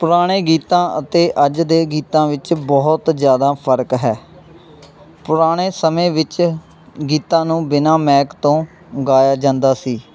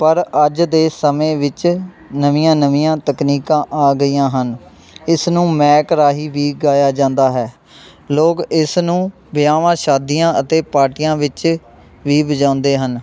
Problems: none marked